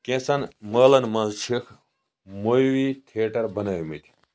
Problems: low volume